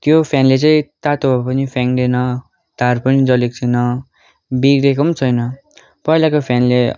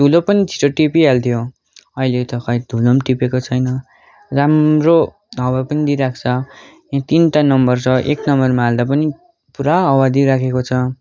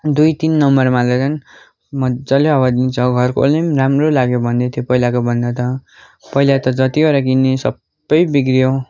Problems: continuous background conversations